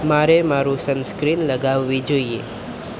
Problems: constant background noise